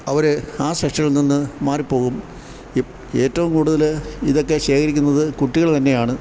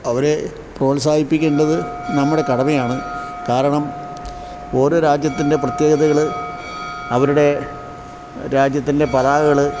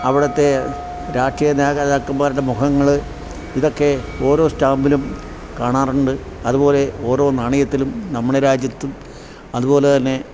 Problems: background sounds at intervals